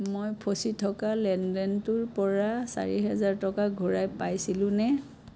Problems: constant background noise